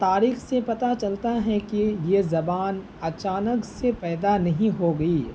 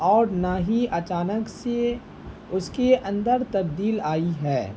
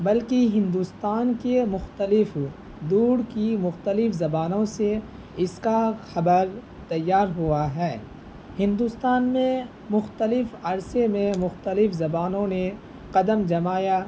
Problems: constant background noise